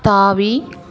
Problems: continuous background conversations